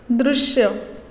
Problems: none marked